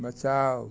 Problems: none marked